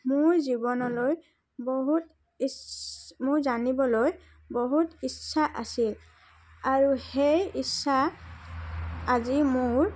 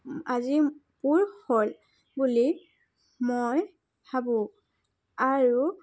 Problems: background sounds at intervals, background conversations at intervals